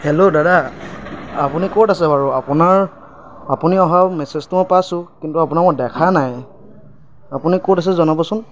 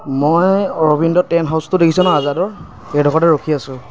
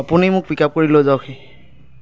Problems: background sounds at intervals